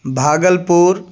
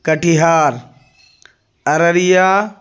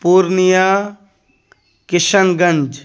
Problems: none marked